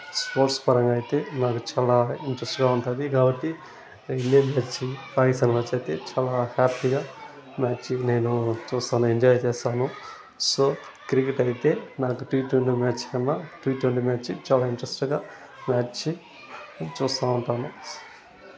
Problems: none marked